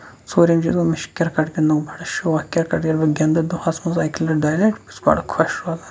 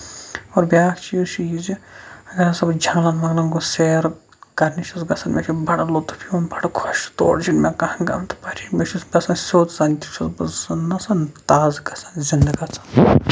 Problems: background sounds at intervals